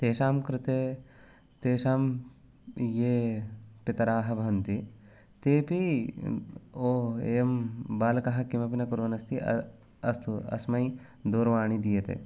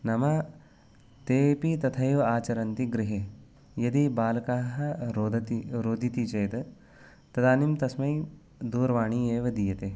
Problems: none marked